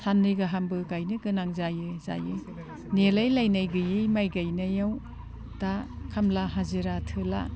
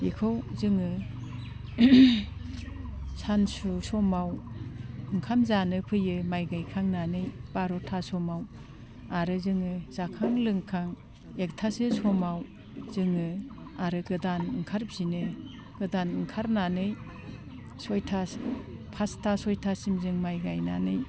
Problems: constant background noise